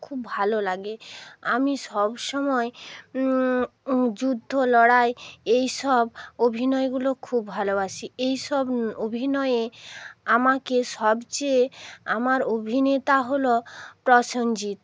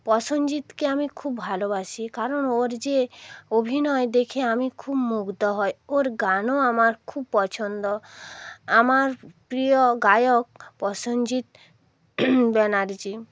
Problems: none marked